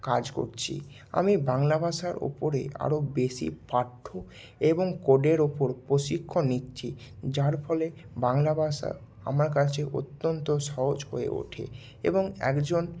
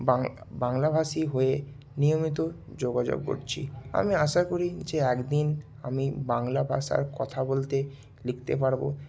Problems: none marked